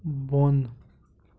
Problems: none marked